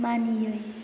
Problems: constant background noise